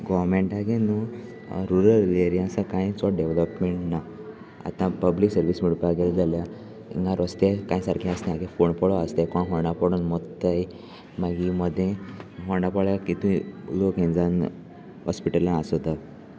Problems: constant background noise